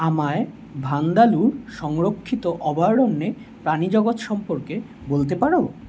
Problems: none marked